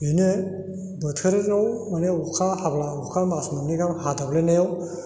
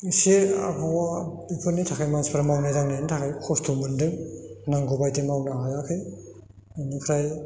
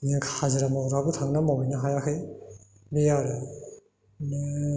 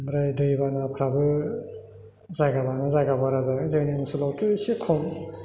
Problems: none marked